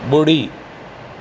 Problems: constant background noise